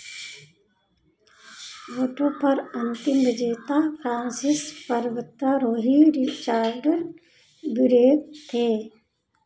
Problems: constant background noise